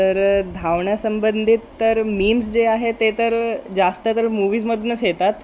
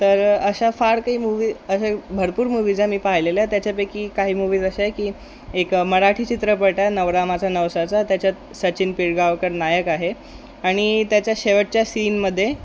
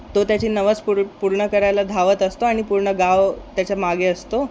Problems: constant background noise